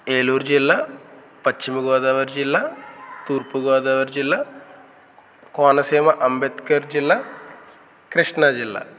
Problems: none marked